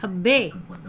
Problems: background sounds at intervals